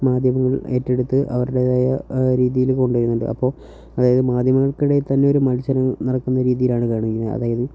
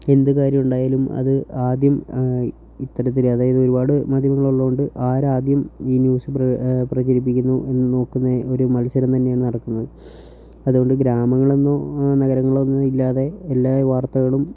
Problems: low volume